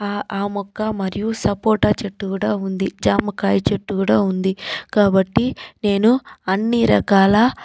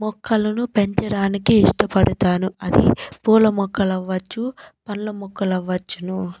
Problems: background sounds at intervals